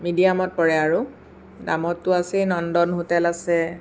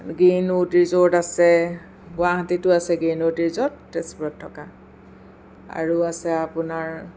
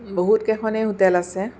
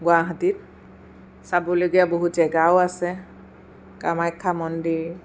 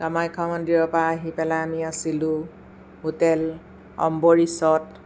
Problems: none marked